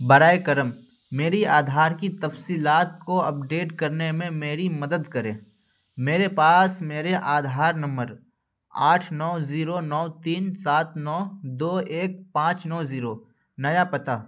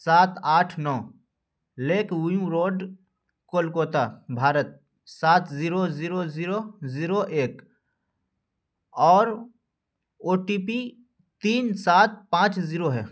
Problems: none marked